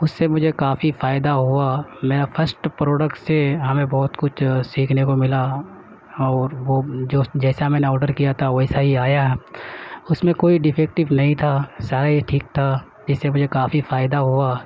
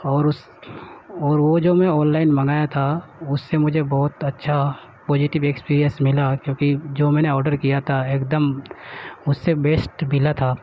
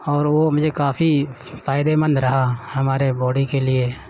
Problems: none marked